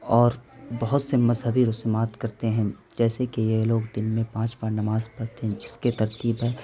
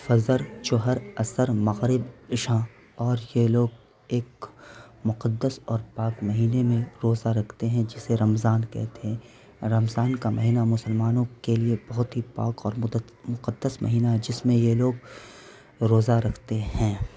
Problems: constant background noise